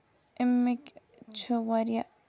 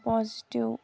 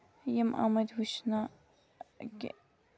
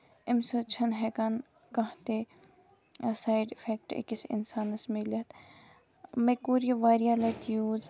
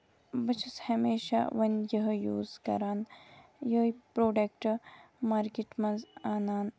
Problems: background sounds at intervals